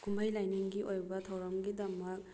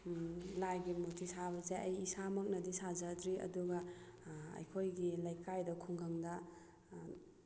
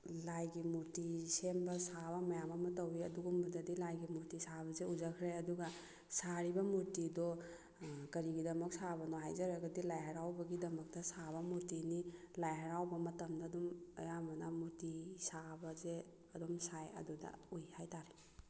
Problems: background sounds at intervals